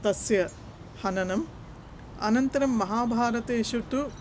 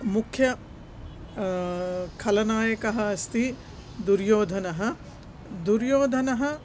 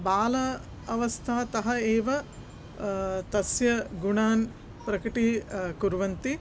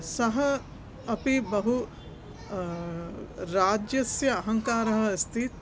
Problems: constant background noise